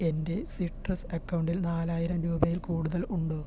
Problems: low volume